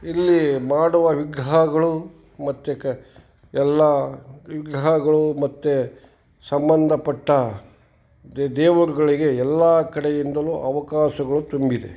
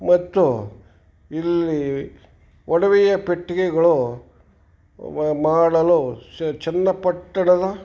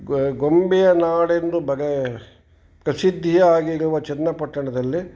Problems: background conversations at intervals